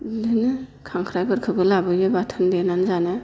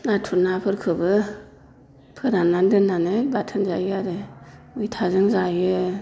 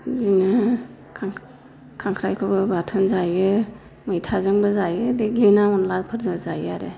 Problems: constant background noise